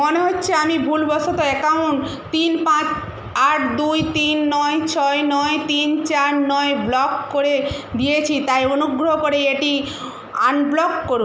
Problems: none marked